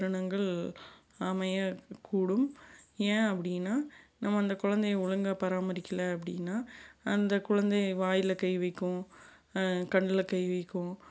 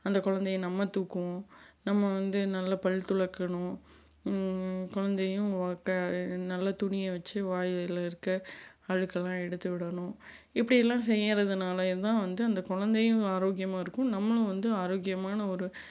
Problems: none marked